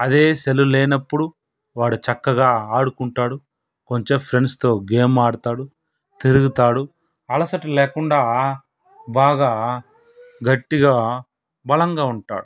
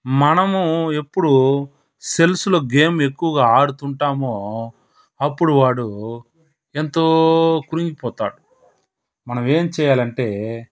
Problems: background sounds at intervals